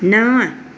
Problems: constant background noise